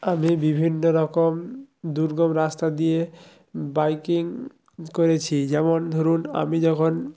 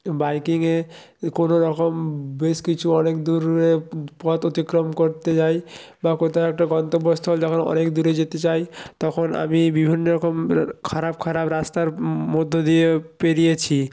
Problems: none marked